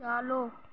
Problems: background sounds at intervals